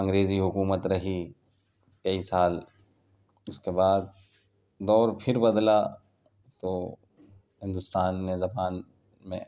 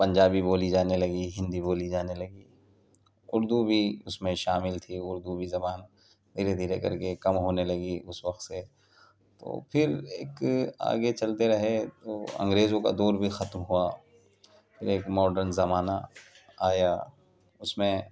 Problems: constant background noise